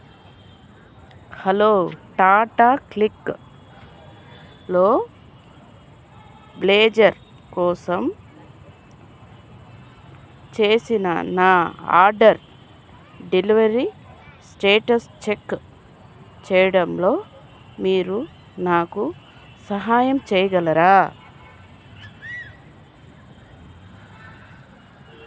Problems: constant background noise